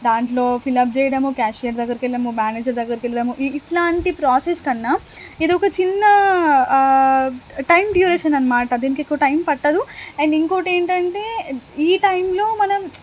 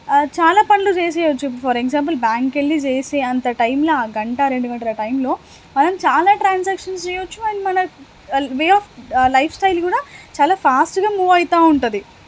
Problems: constant background noise